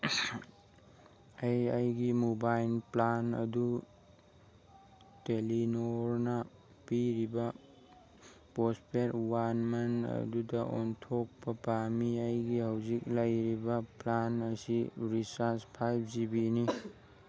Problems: background sounds at intervals